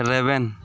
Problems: background conversations at intervals